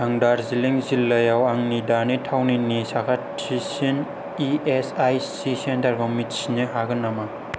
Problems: none marked